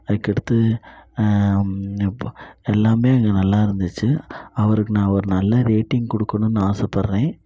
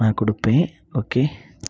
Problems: none marked